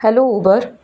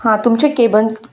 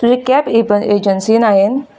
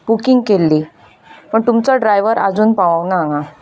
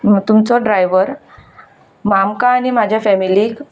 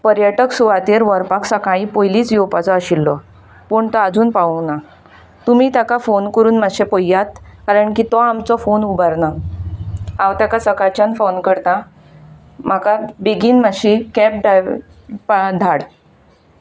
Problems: background sounds at intervals